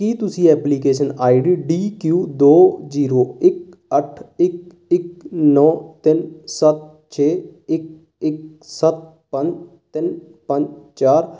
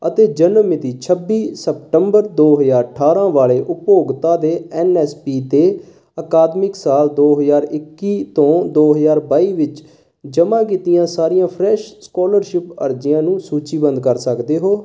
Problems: none marked